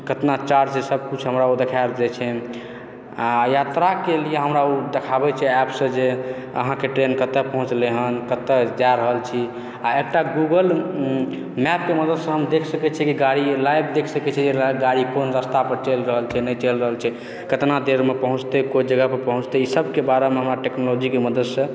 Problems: background sounds at intervals